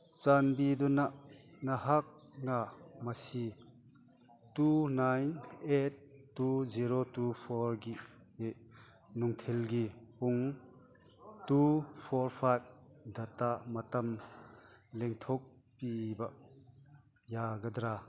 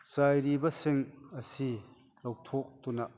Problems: background conversations at intervals